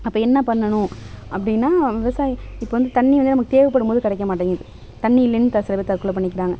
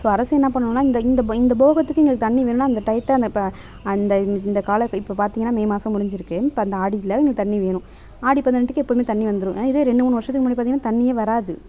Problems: background sounds at intervals, background conversations at intervals